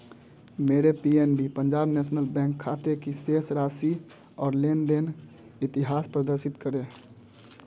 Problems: none marked